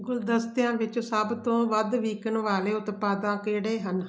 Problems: none marked